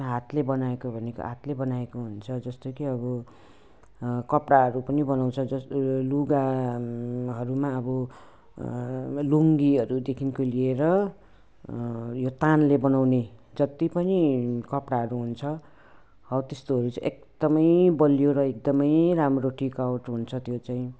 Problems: none marked